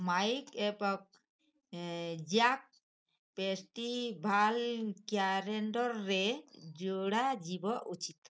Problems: background sounds at intervals